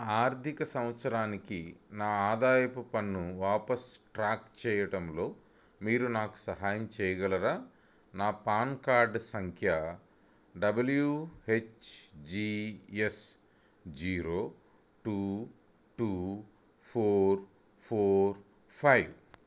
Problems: none marked